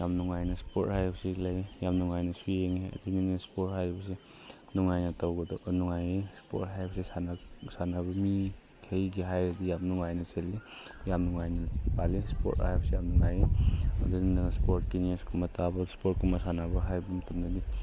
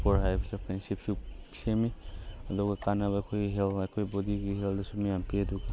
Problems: none marked